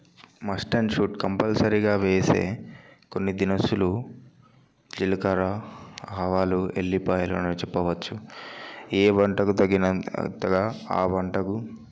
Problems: none marked